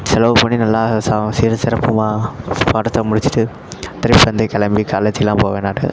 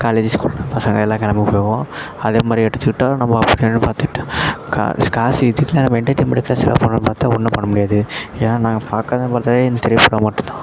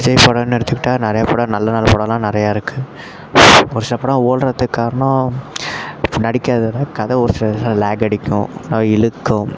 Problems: constant background noise, continuous background conversations